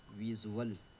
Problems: none marked